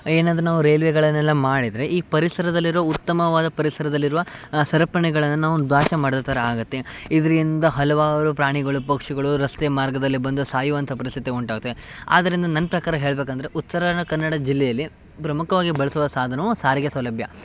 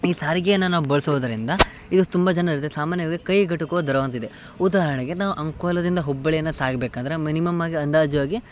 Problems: none marked